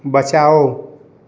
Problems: none marked